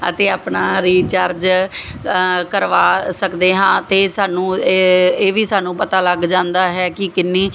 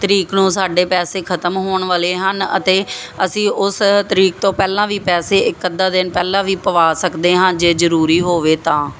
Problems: none marked